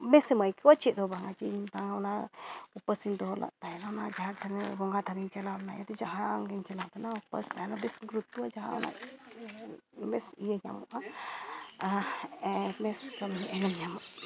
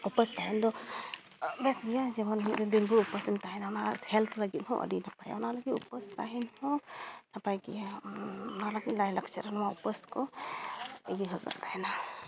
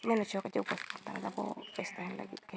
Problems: background sounds at intervals, low volume